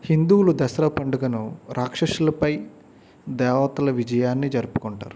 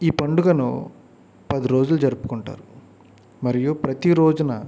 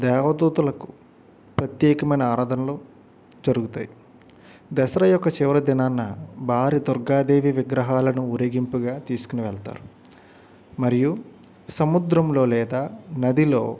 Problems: background sounds at intervals